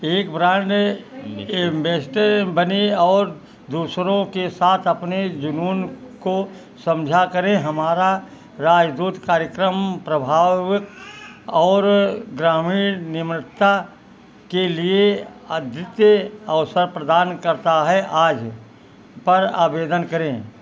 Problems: constant background noise